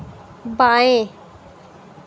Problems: background sounds at intervals